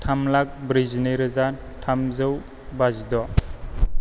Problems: low volume